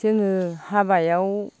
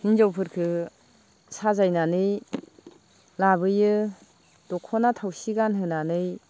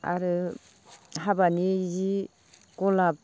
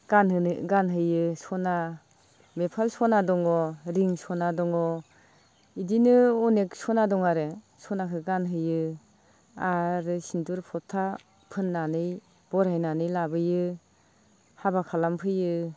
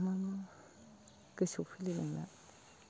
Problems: constant background noise